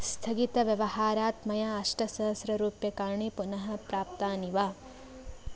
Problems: none marked